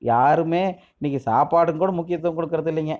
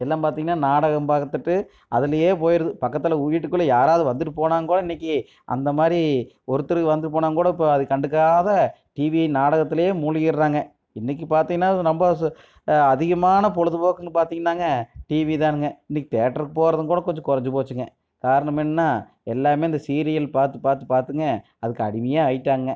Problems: none marked